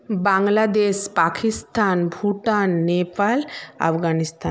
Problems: constant background noise